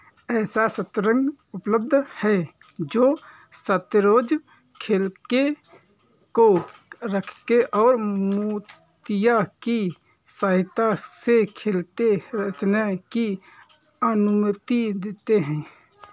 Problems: background sounds at intervals